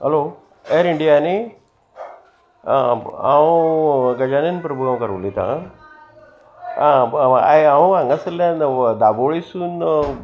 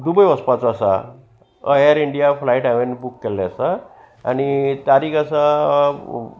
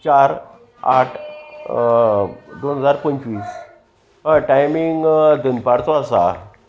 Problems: constant background noise, background conversations at intervals